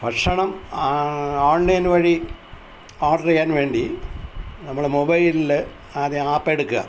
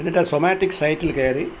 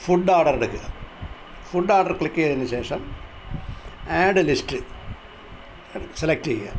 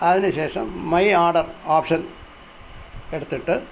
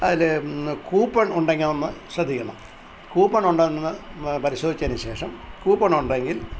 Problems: constant background noise